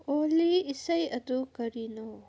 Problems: none marked